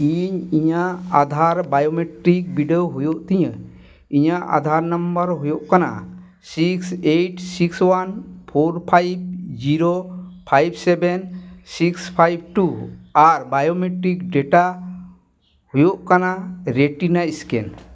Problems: none marked